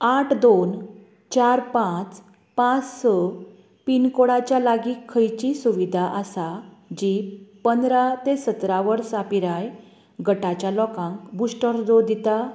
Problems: constant background noise